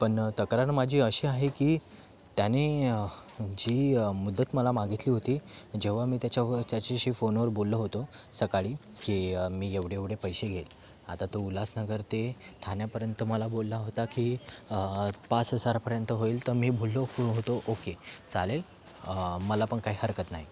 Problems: constant background noise, background conversations at intervals